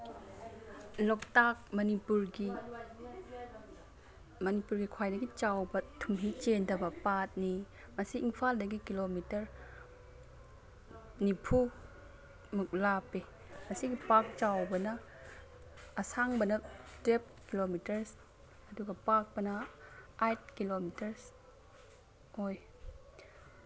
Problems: background sounds at intervals